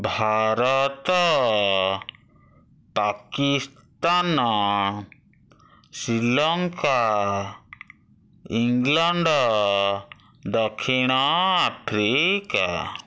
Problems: none marked